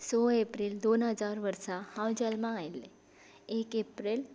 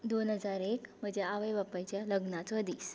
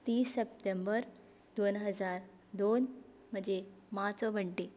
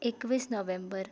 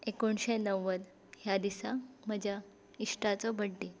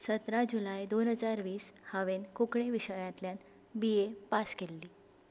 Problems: background sounds at intervals